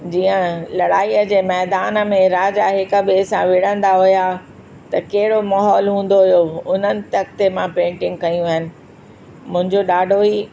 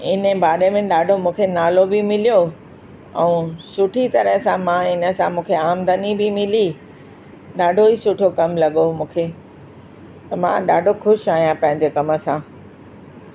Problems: constant background noise